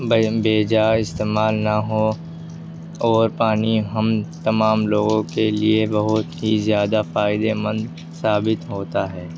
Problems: background sounds at intervals